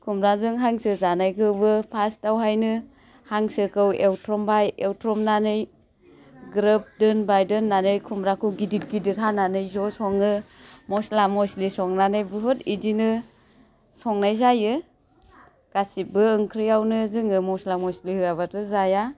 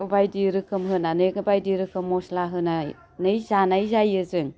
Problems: constant background noise